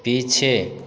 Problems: none marked